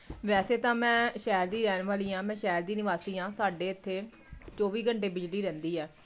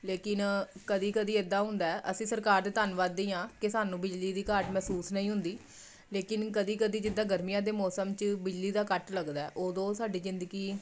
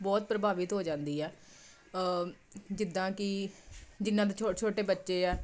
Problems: none marked